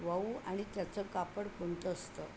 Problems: constant background noise, low volume